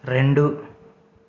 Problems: none marked